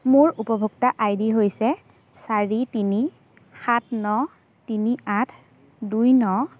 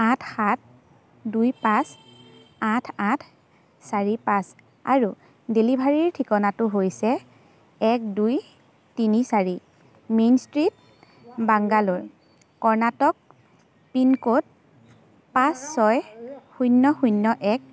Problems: constant background noise, background conversations at intervals